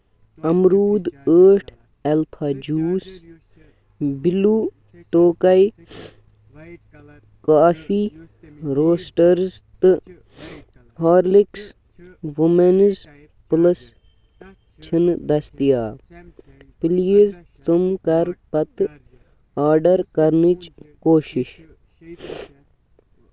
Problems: background sounds at intervals, background conversations at intervals